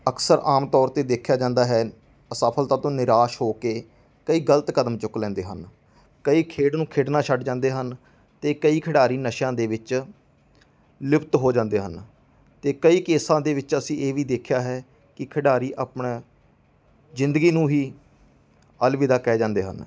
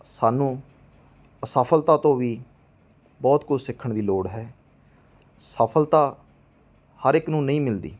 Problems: background sounds at intervals